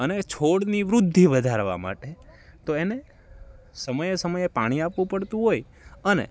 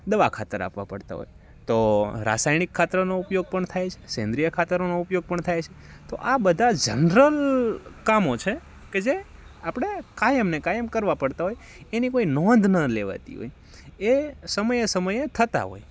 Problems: background sounds at intervals